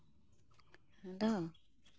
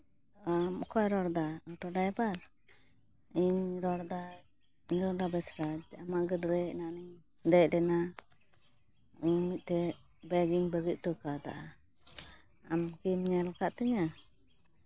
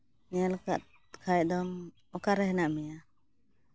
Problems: constant background noise